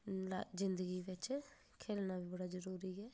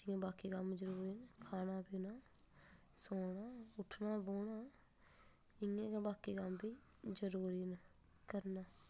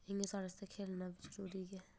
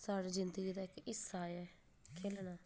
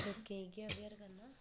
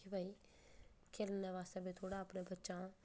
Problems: background sounds at intervals